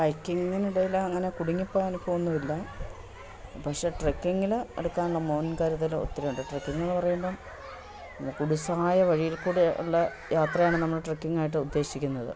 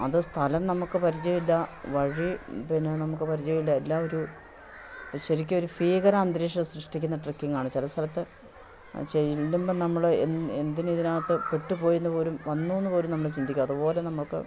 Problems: constant background noise